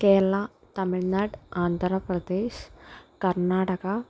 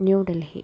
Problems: background sounds at intervals